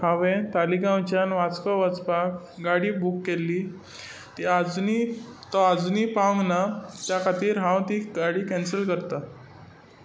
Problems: constant background noise